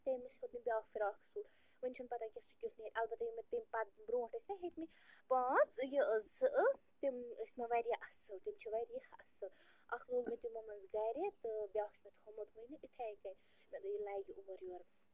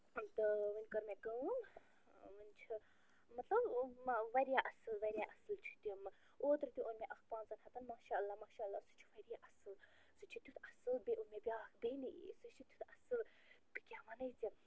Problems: constant background noise, low volume